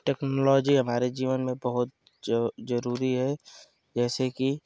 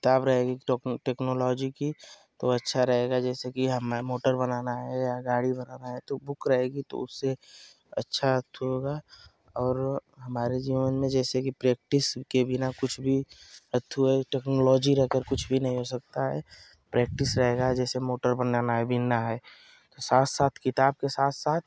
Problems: none marked